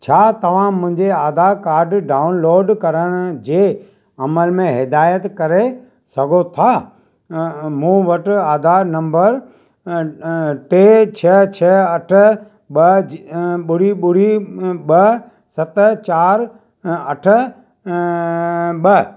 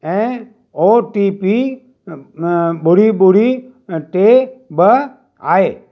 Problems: none marked